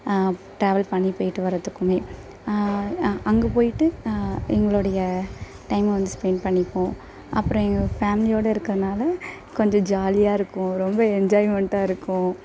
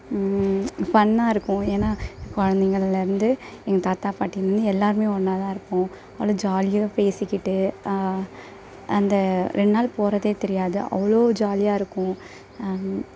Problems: constant background noise